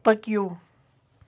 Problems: background sounds at intervals